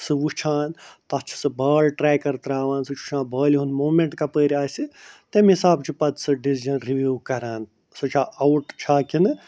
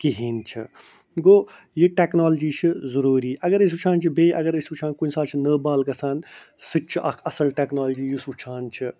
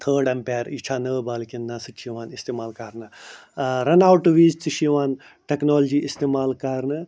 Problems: none marked